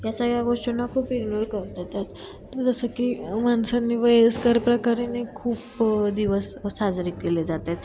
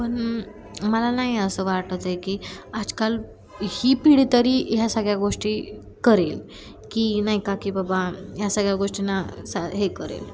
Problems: none marked